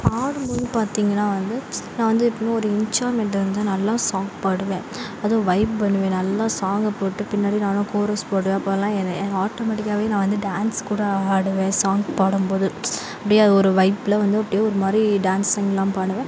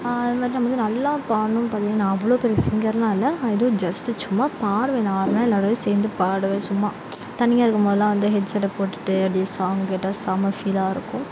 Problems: background sounds at intervals